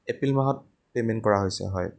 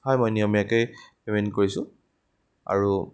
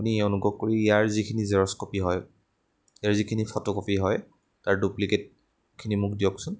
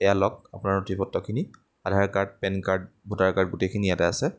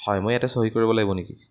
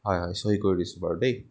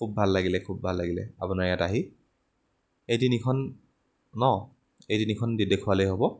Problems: background sounds at intervals